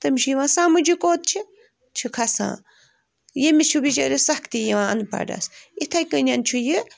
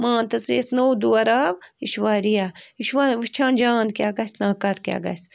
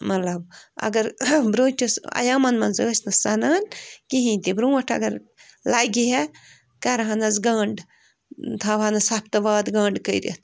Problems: constant background noise